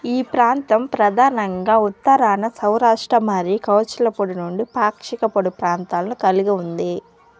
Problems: background sounds at intervals